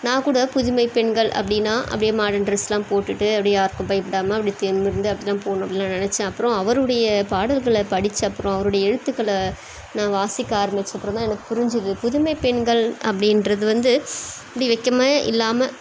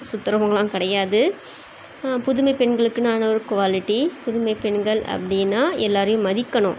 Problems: constant background noise